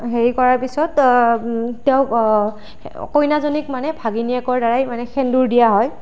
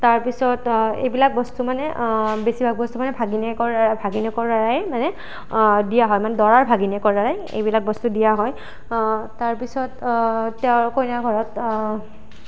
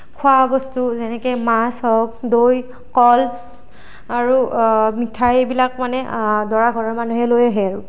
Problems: constant background noise